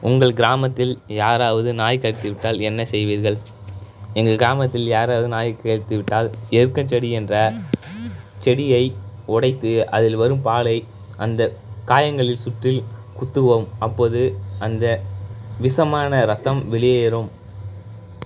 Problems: constant background noise